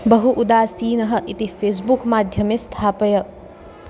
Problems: constant background noise